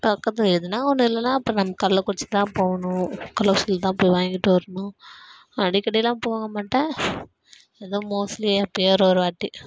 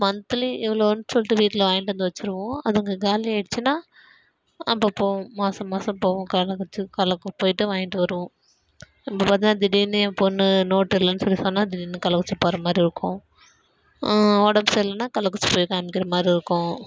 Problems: none marked